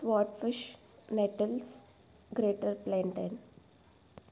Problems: low volume